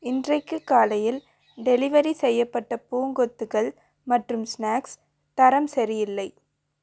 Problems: background sounds at intervals